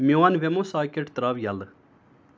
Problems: none marked